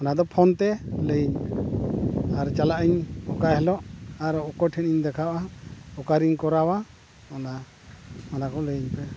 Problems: none marked